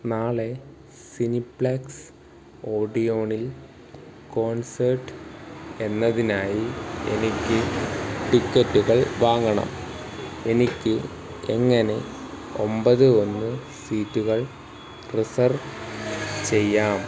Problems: constant background noise